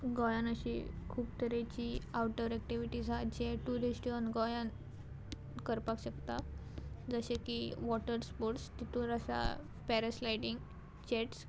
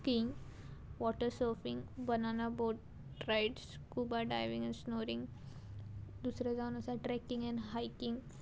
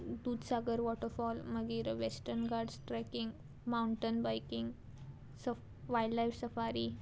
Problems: background sounds at intervals